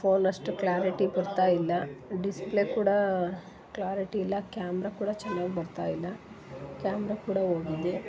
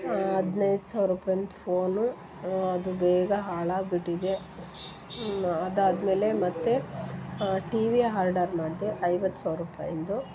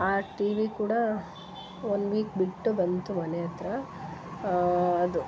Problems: background sounds at intervals